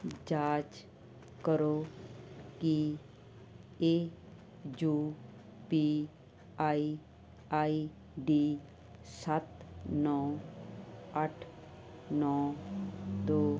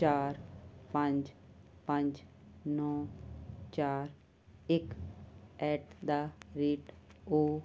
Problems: constant background noise